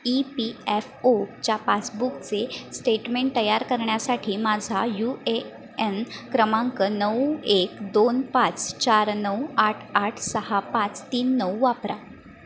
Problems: constant background noise